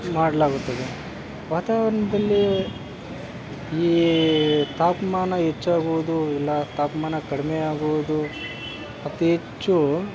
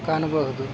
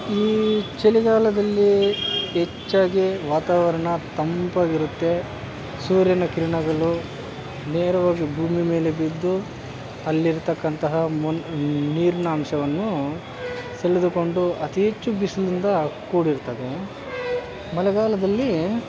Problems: constant background noise